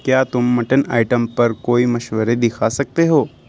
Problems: none marked